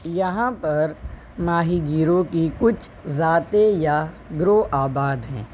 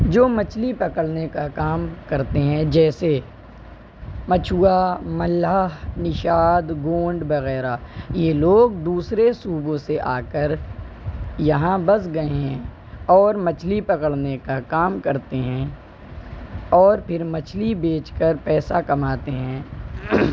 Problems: constant background noise